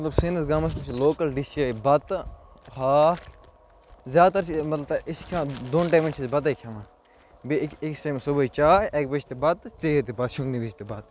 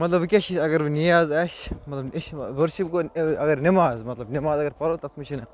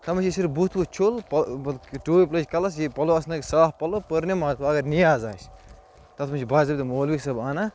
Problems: low volume